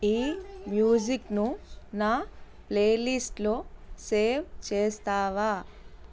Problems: constant background noise